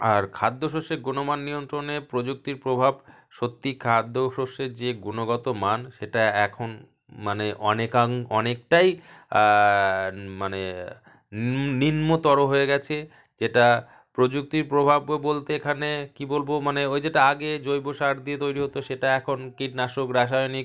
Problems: none marked